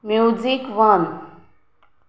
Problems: background sounds at intervals